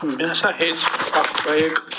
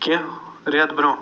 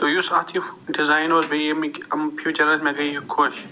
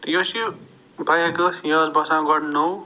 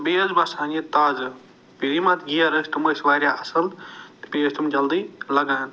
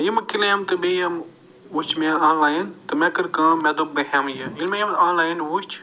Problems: none marked